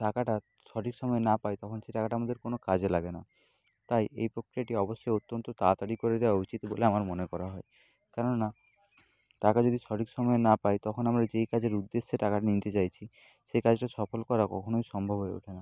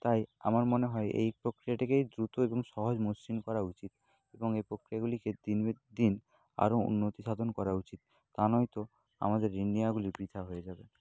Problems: none marked